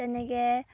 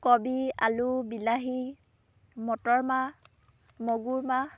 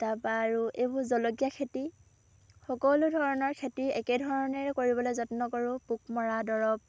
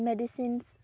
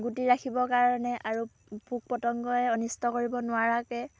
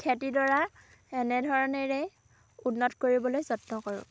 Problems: background sounds at intervals, background conversations at intervals